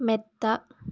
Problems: none marked